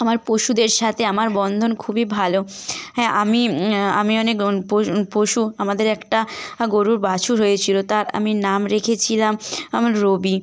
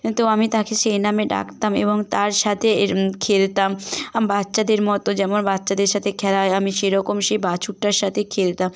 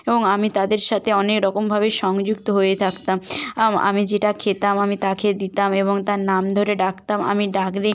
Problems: background sounds at intervals